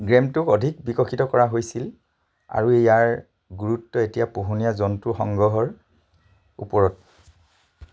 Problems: none marked